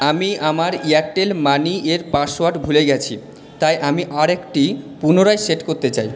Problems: background sounds at intervals